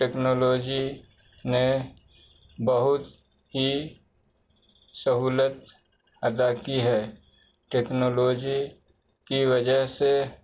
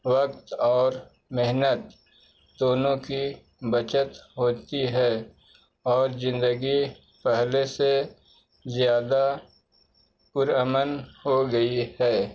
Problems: constant background noise